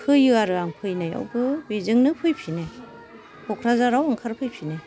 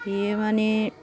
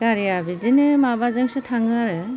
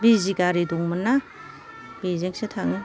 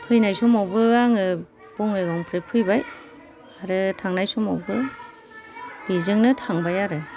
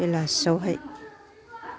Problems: low volume